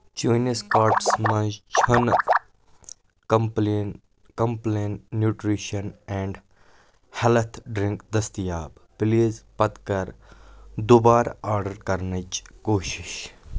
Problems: background sounds at intervals